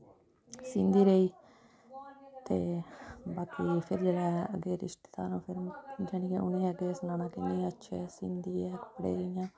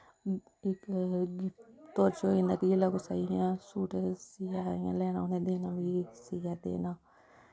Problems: none marked